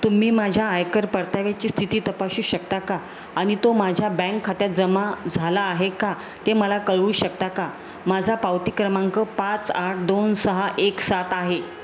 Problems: constant background noise